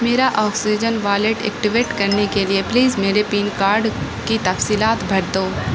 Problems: constant background noise